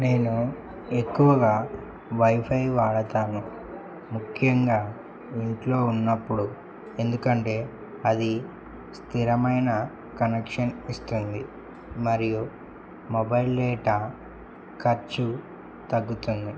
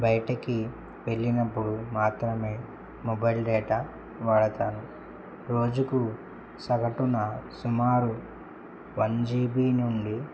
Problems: constant background noise